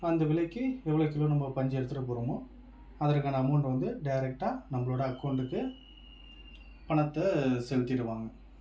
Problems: background sounds at intervals